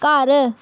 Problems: background sounds at intervals